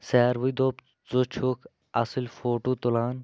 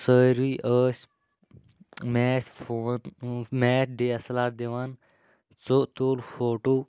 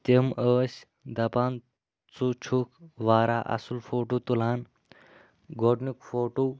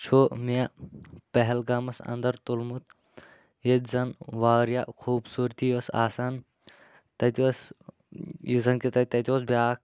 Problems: constant background noise